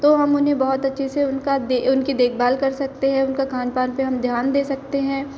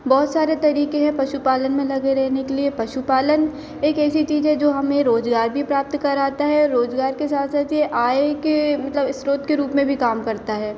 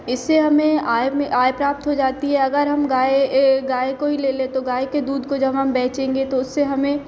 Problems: none marked